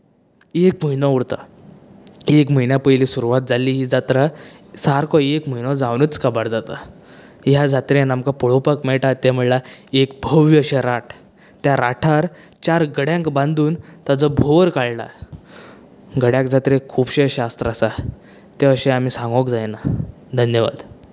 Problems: none marked